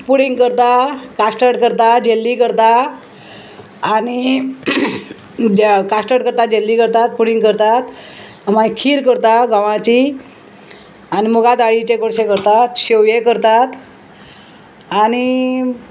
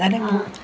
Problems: constant background noise